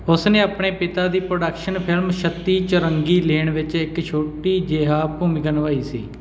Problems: background sounds at intervals